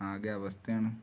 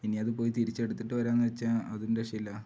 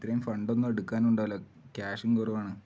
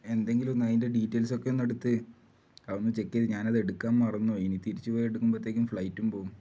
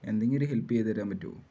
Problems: low volume